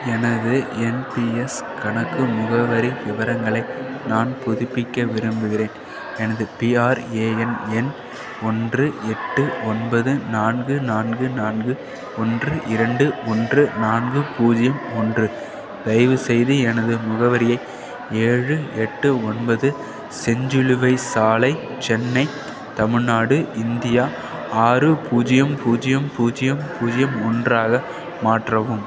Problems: background sounds at intervals